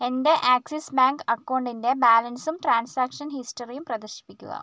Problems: none marked